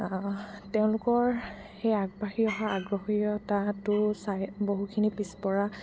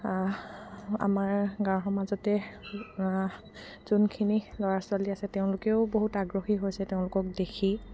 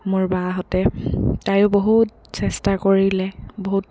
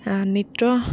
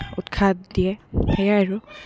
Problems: background sounds at intervals